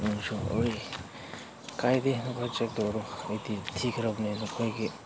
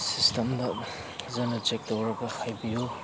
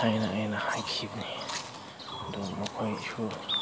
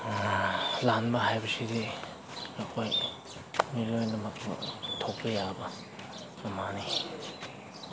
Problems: background sounds at intervals